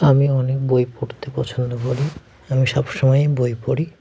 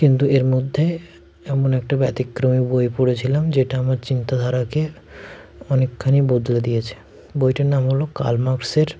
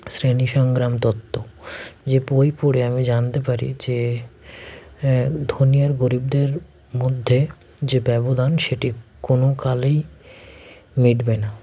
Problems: none marked